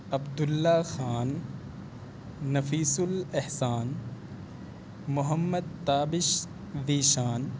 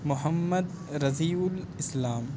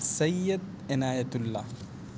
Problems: none marked